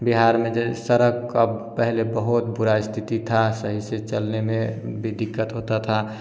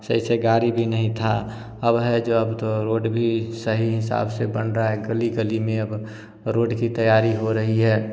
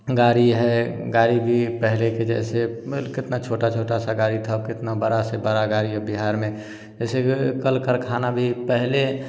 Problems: constant background noise